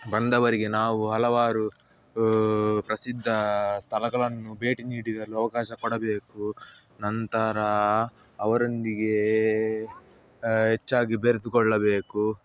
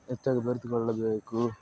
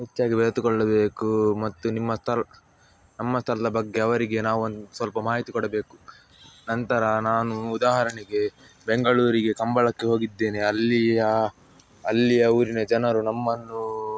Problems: background sounds at intervals, background conversations at intervals